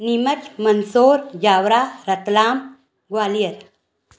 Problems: none marked